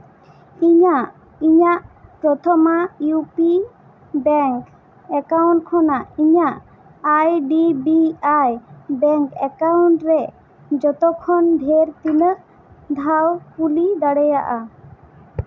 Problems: constant background noise